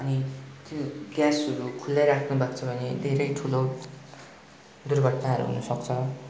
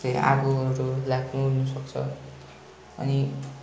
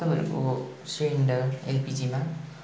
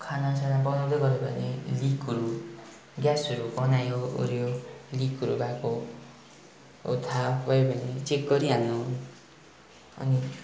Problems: none marked